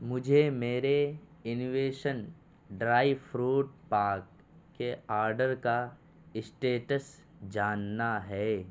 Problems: constant background noise